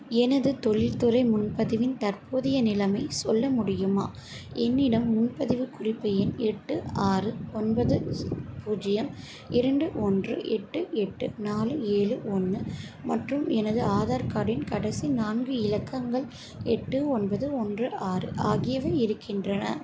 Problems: constant background noise